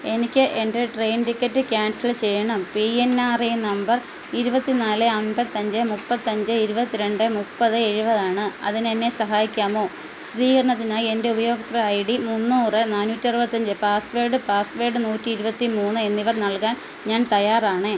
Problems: none marked